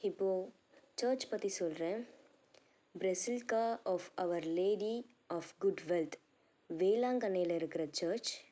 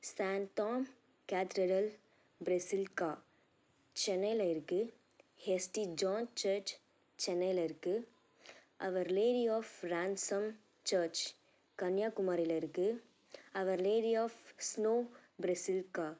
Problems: low volume